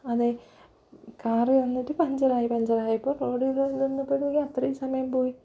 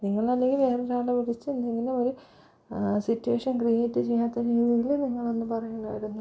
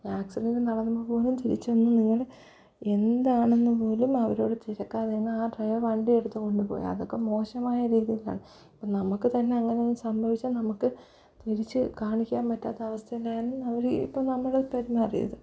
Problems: low volume